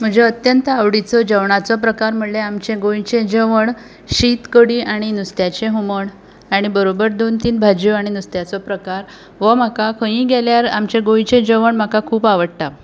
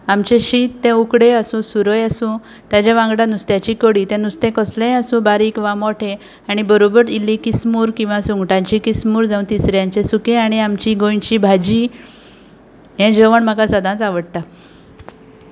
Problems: background sounds at intervals